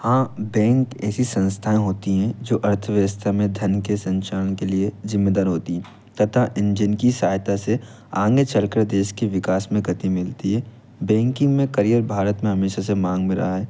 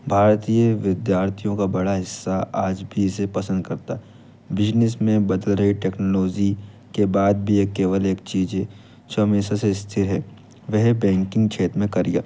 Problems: constant background noise